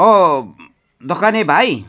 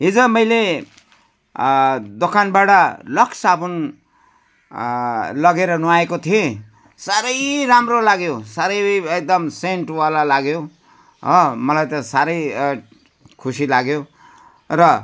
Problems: none marked